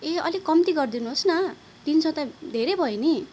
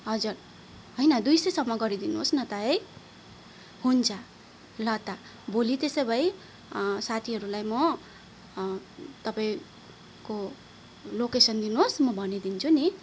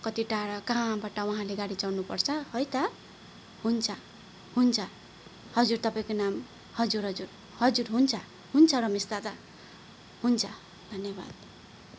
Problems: none marked